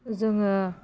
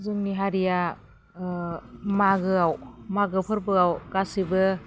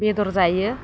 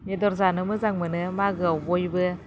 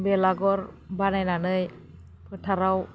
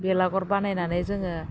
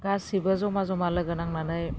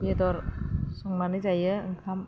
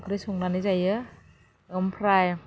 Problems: low volume